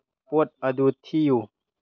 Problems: low volume